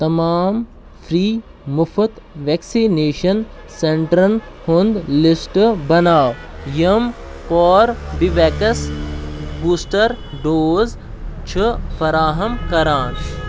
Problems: constant background noise